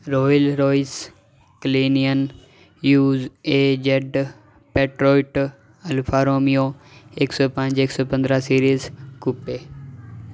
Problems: background sounds at intervals